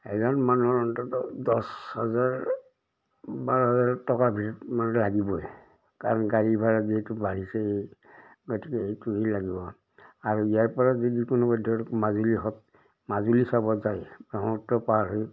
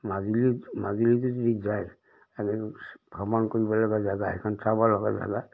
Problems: background sounds at intervals